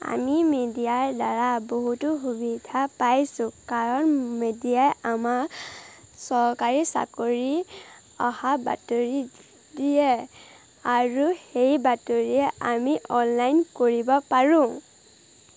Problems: constant background noise